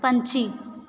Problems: background sounds at intervals